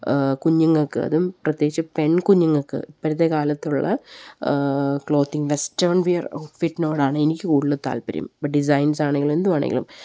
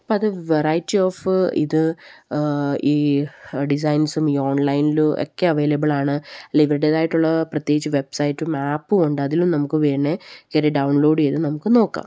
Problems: none marked